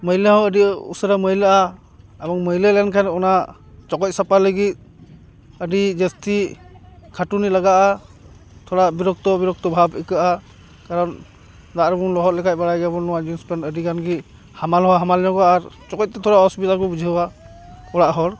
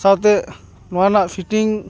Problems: constant background noise, background conversations at intervals